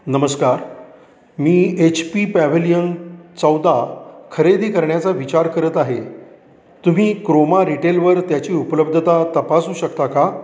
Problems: background sounds at intervals, echo